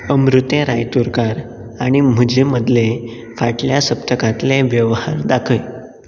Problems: constant background noise